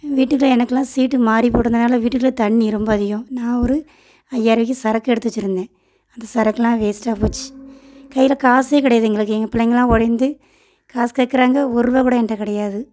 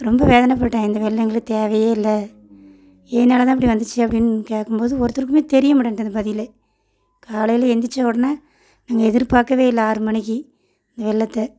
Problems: none marked